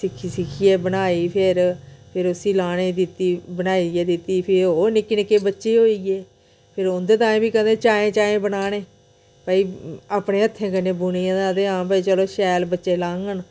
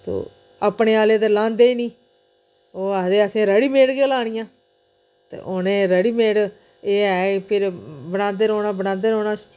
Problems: none marked